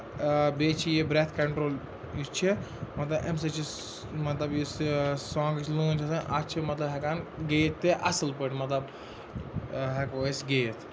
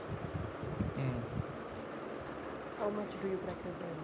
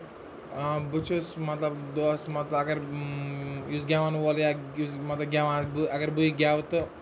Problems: constant background noise, continuous background conversations